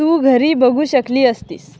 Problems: none marked